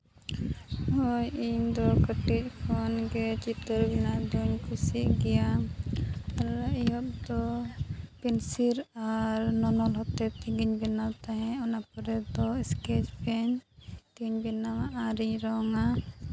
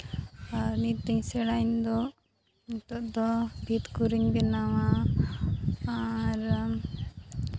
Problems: none marked